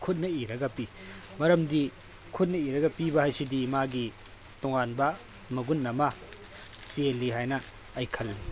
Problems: constant background noise